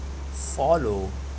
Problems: constant background noise